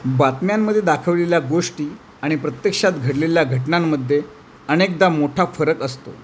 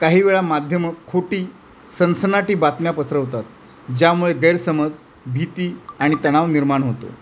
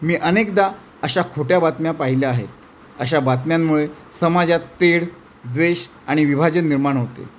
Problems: none marked